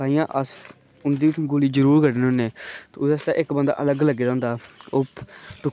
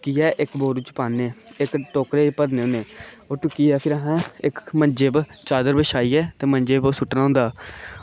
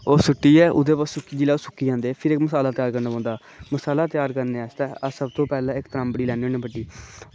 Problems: constant background noise